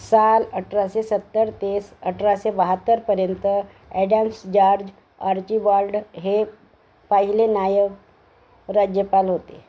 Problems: background sounds at intervals